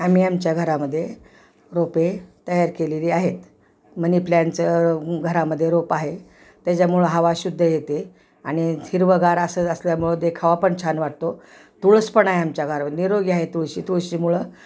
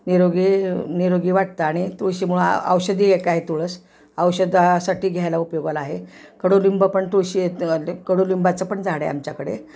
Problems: background sounds at intervals